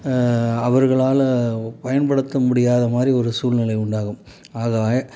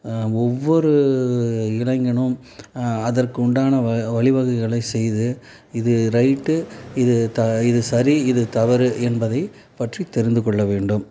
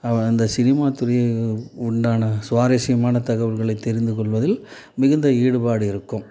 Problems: background sounds at intervals